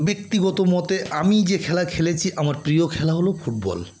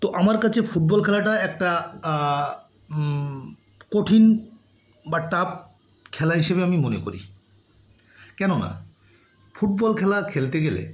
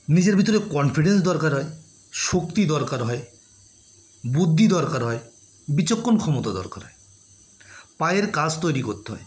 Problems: background sounds at intervals